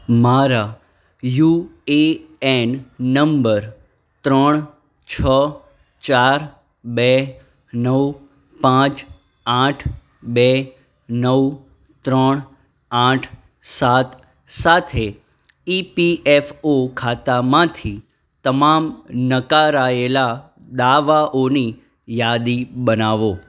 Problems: none marked